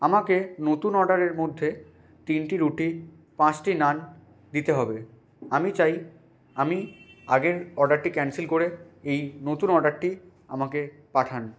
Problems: constant background noise